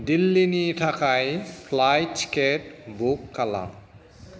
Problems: none marked